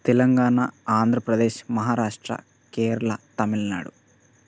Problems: none marked